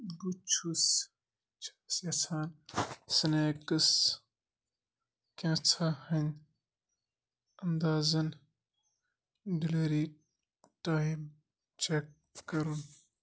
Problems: none marked